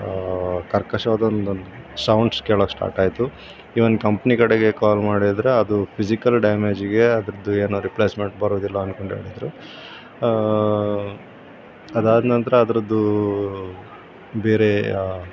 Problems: constant background noise